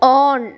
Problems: none marked